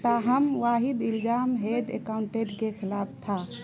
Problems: constant background noise